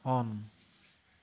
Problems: none marked